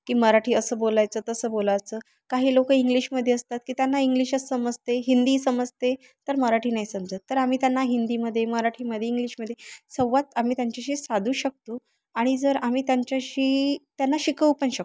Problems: constant background noise, background conversations at intervals